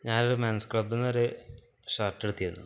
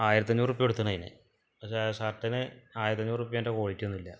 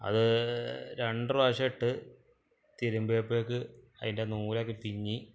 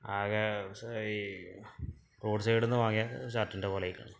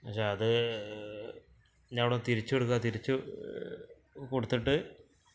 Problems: background sounds at intervals